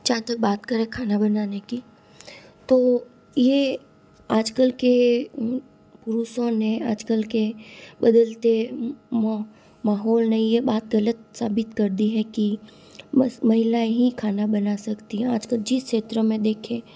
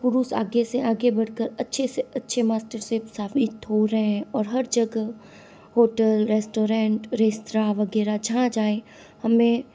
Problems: constant background noise